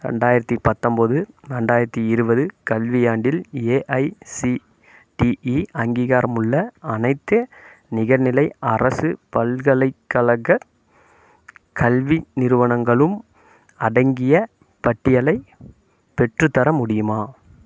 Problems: none marked